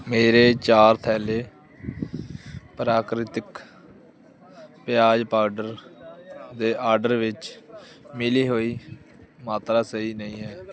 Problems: constant background noise